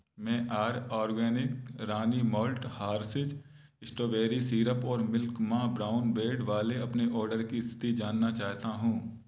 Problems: background sounds at intervals